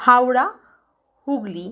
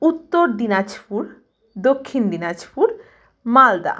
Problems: background sounds at intervals